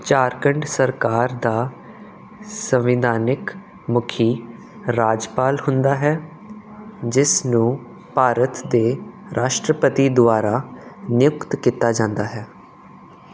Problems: none marked